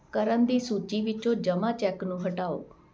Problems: constant background noise